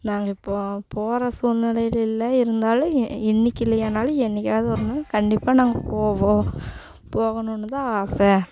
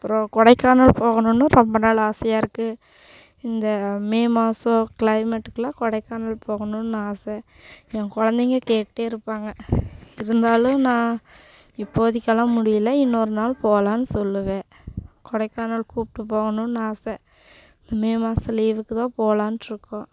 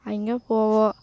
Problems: constant background noise